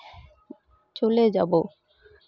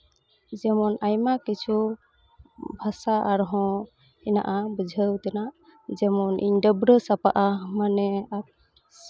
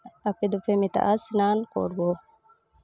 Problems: constant background noise